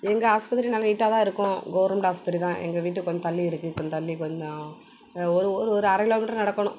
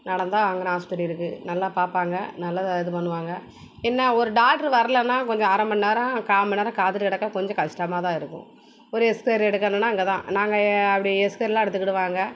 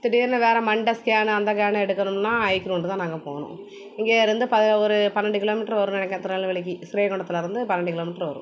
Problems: background sounds at intervals